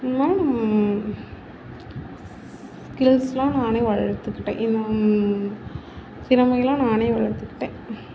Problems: none marked